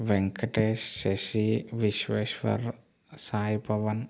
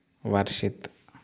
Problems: constant background noise